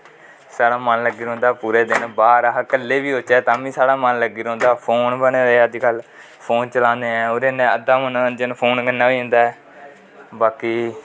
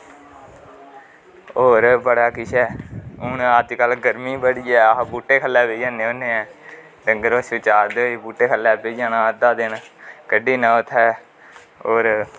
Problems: constant background noise, echo